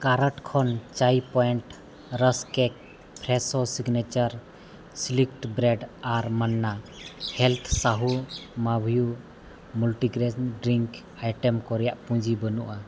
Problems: background sounds at intervals